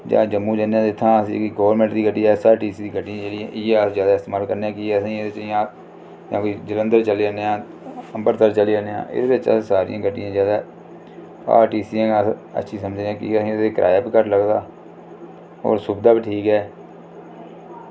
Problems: low volume